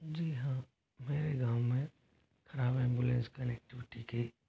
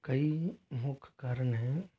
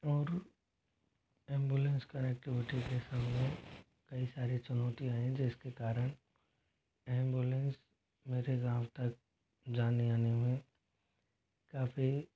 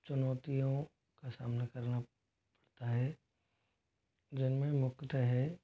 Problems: constant background noise, low volume